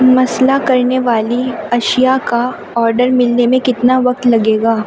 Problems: constant background noise